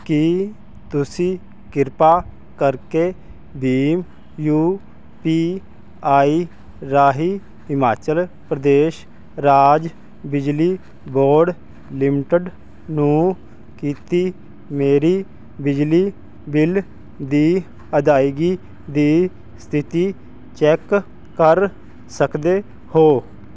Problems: constant background noise